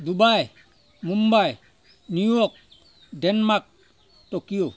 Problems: constant background noise